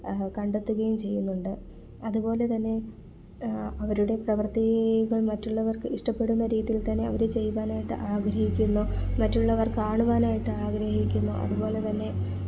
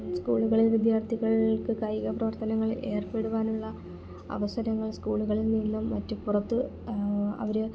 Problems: background sounds at intervals, low volume